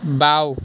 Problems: constant background noise